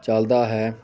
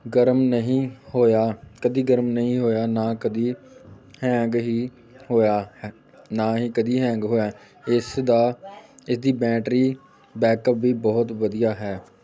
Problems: none marked